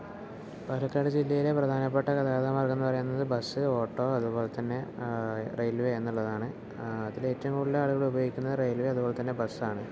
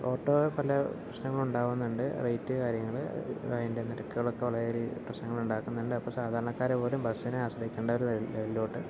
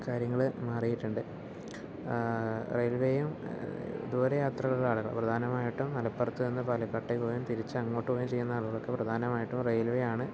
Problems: none marked